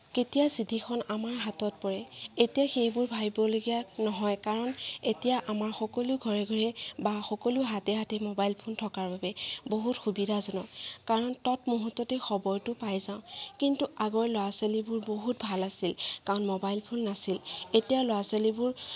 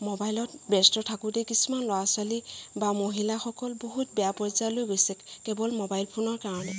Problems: background sounds at intervals, background conversations at intervals